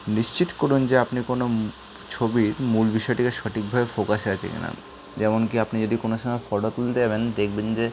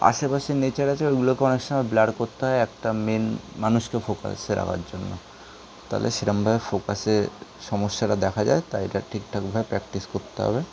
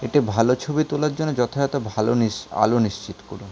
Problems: constant background noise